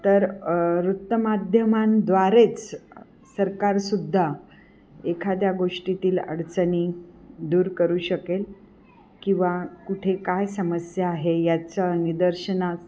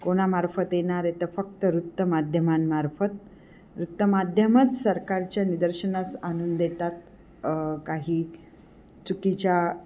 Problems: none marked